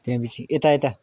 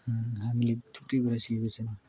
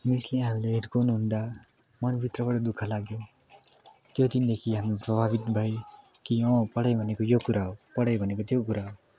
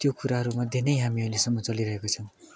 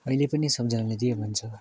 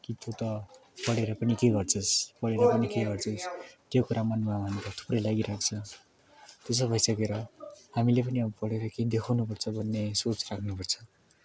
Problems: continuous background conversations